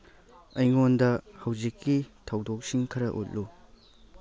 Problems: background conversations at intervals